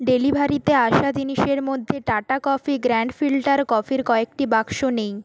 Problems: none marked